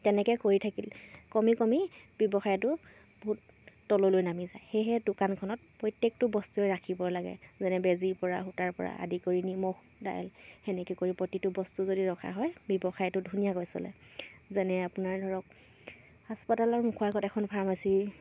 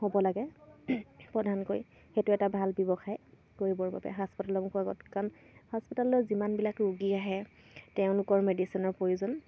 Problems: none marked